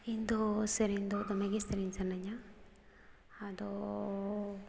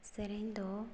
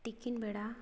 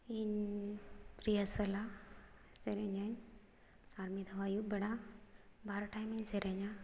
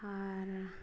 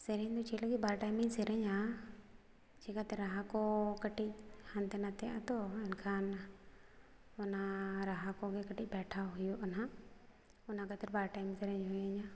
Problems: background sounds at intervals